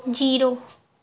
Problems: background conversations at intervals